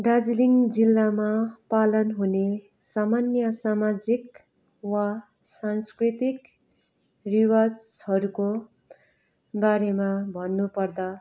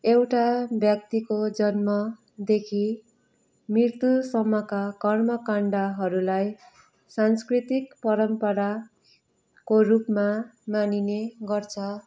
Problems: background sounds at intervals